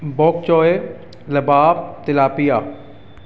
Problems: background sounds at intervals